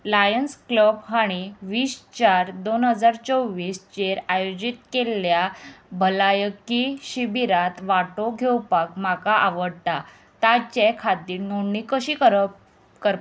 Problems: none marked